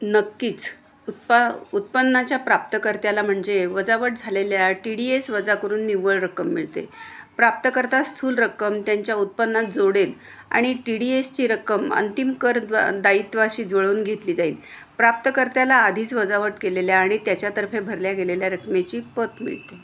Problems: constant background noise